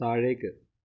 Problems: low volume